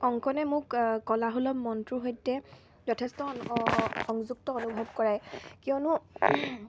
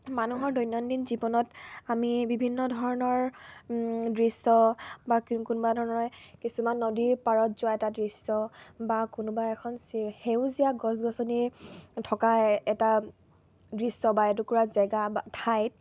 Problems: none marked